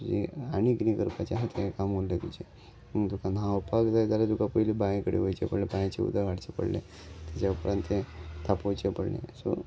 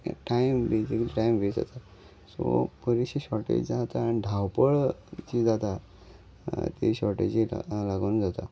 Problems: none marked